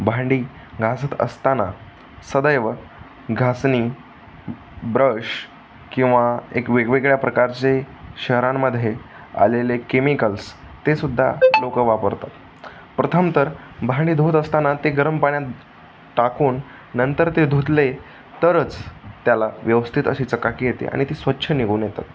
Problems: constant background noise, background conversations at intervals